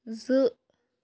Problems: none marked